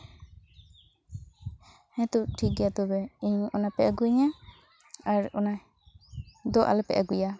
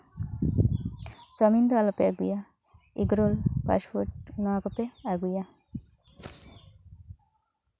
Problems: background conversations at intervals